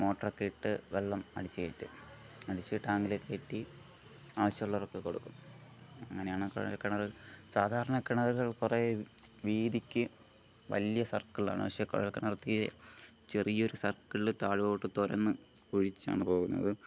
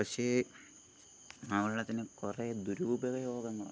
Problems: none marked